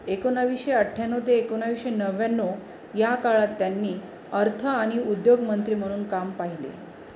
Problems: none marked